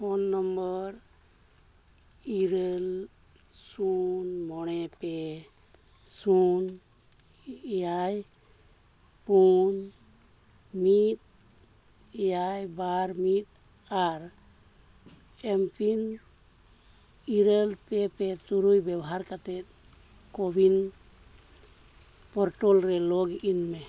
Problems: none marked